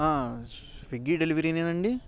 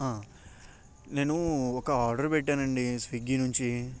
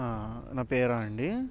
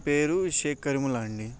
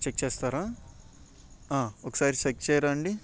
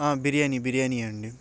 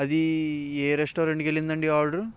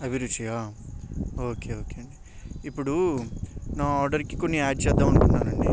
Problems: background sounds at intervals